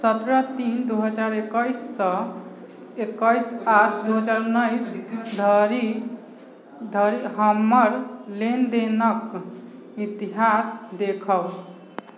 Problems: background conversations at intervals